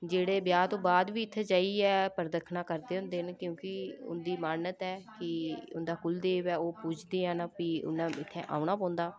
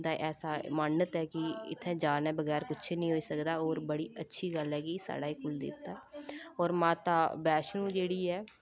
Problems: none marked